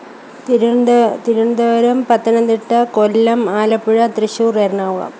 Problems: none marked